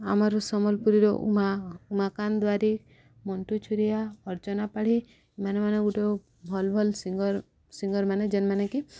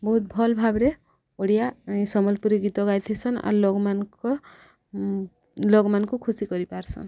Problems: background sounds at intervals, background conversations at intervals